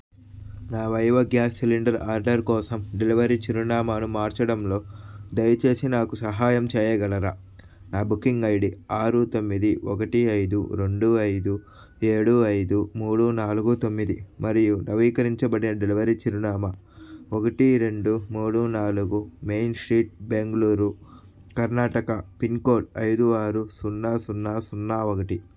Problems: background sounds at intervals